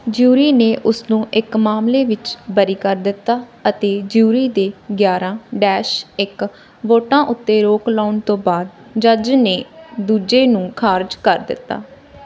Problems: none marked